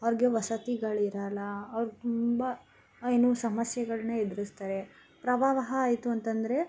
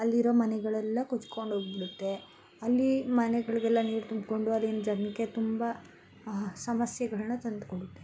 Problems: constant background noise